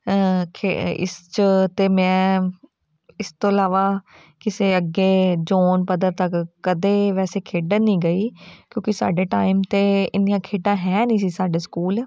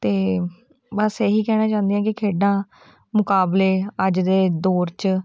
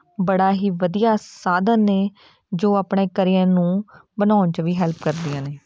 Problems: background sounds at intervals, background conversations at intervals